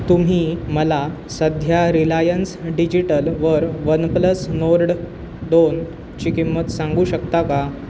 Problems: constant background noise